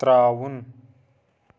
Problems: constant background noise